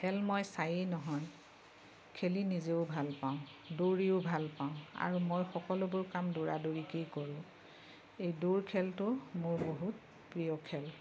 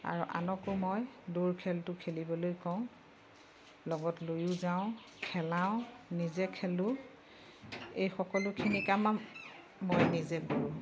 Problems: background sounds at intervals